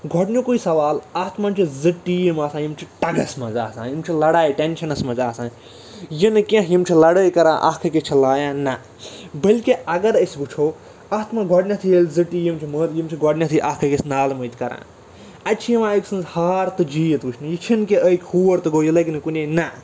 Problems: constant background noise, continuous background conversations